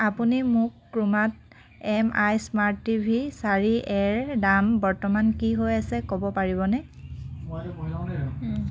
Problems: constant background noise